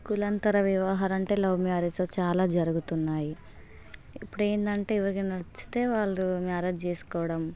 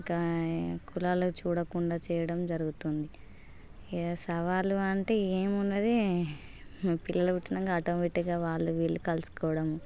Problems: constant background noise